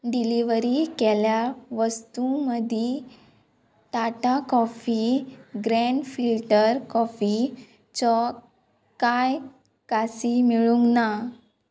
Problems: background sounds at intervals